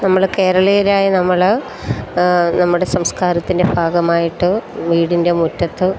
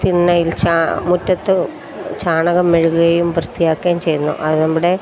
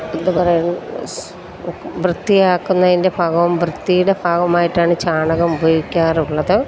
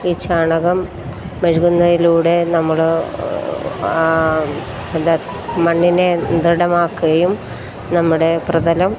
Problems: constant background noise